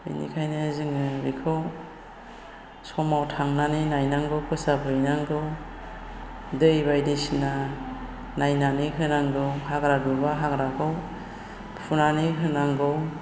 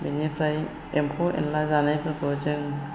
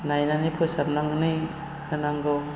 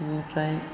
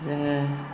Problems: constant background noise